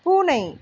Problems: none marked